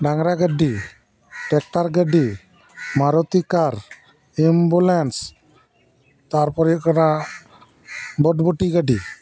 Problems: background sounds at intervals